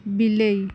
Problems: none marked